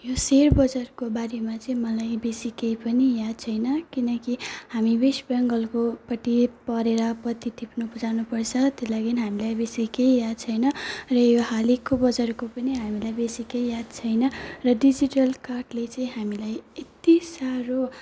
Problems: none marked